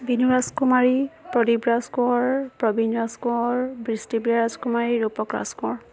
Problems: none marked